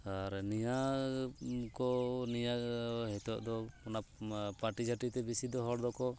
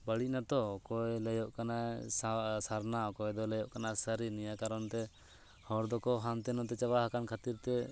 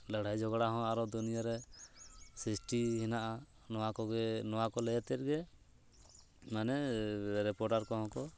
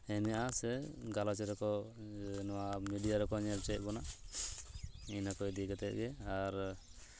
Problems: constant background noise